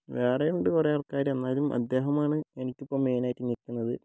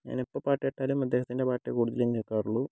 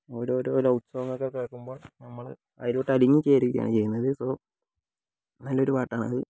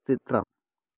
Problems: low volume